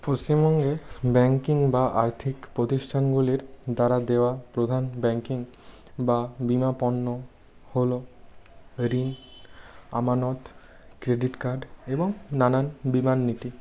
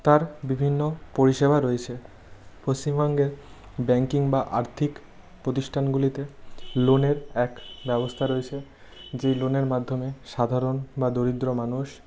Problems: background sounds at intervals